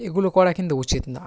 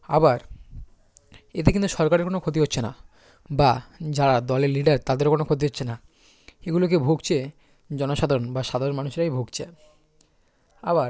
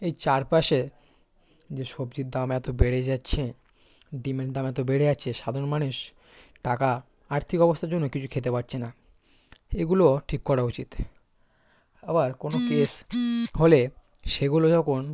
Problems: constant background noise, background conversations at intervals